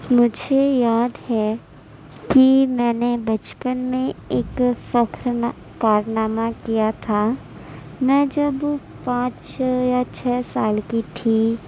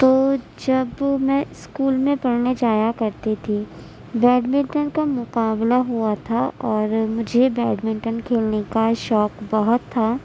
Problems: none marked